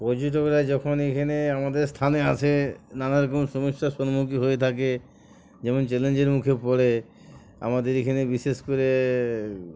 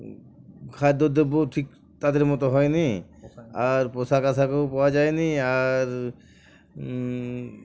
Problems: background sounds at intervals, background conversations at intervals